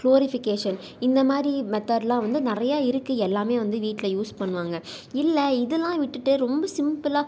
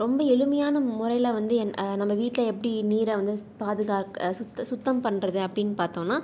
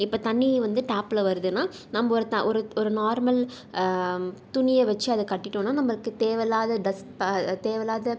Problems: none marked